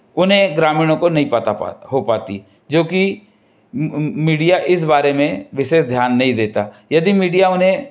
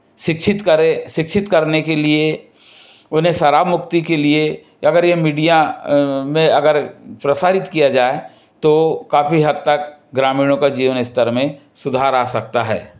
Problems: background sounds at intervals